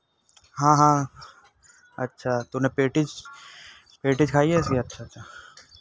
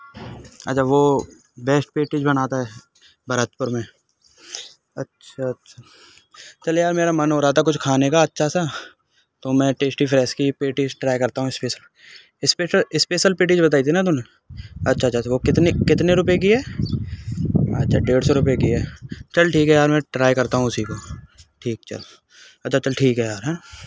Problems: constant background noise